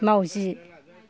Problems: background conversations at intervals